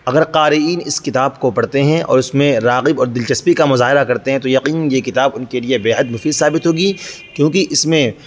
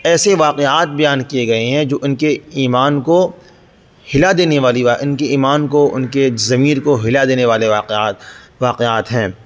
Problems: background sounds at intervals